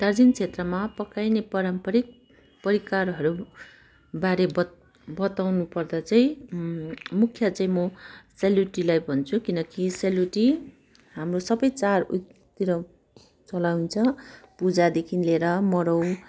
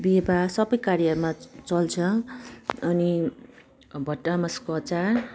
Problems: constant background noise